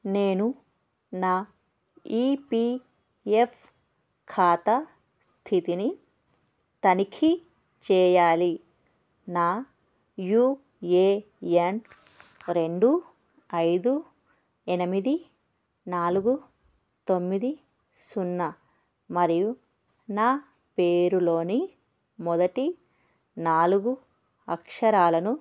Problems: none marked